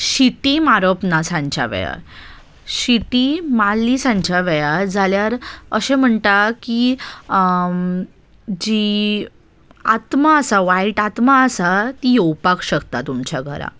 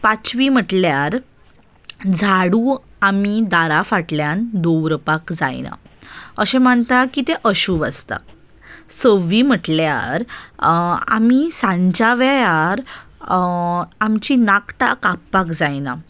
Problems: none marked